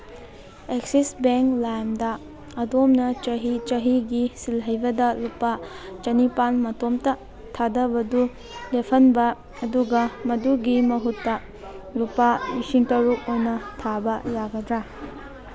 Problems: background conversations at intervals